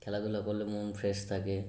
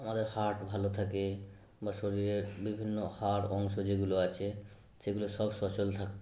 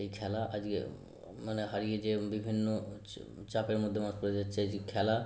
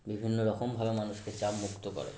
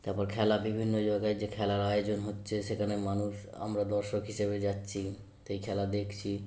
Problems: background sounds at intervals